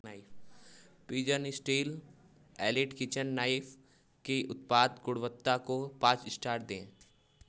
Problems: background sounds at intervals